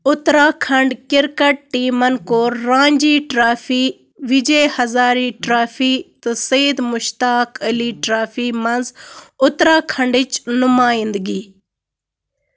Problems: constant background noise